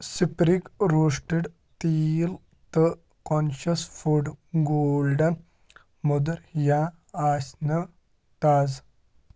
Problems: constant background noise